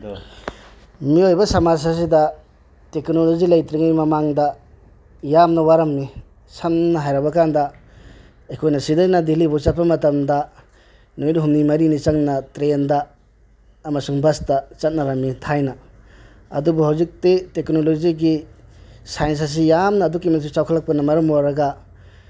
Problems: none marked